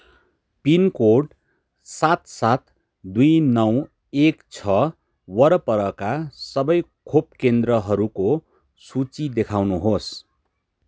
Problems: background sounds at intervals